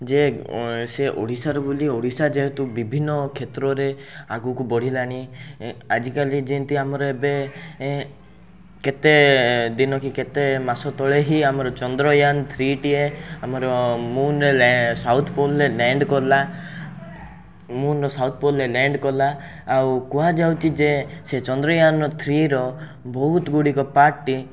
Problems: none marked